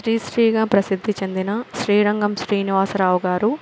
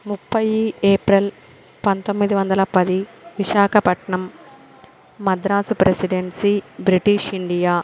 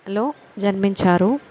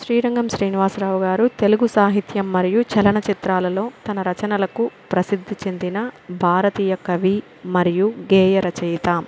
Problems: constant background noise